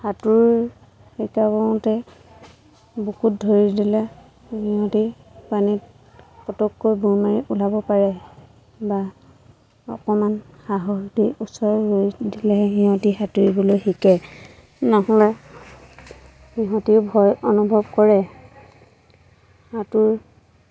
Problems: constant background noise, background conversations at intervals